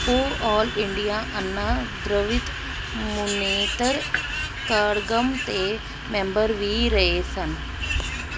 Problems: constant background noise